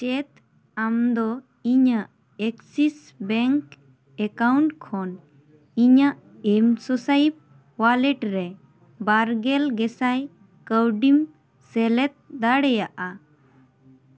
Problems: background conversations at intervals